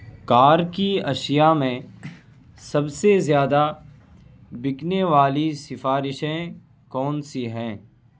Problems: constant background noise